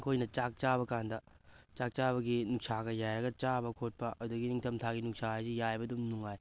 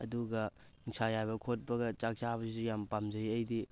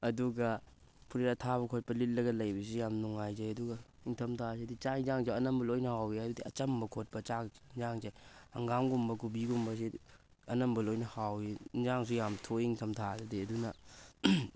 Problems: none marked